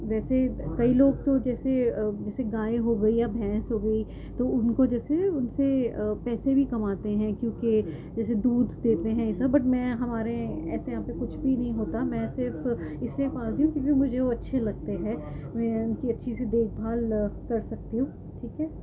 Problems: constant background noise